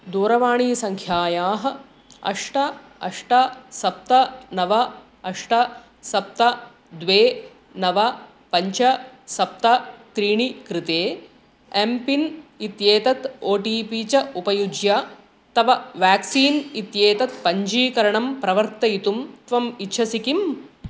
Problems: constant background noise